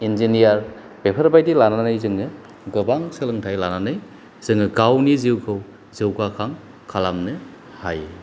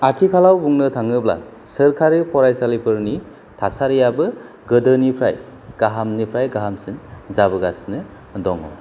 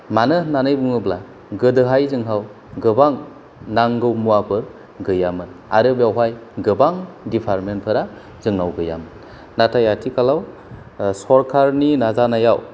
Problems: none marked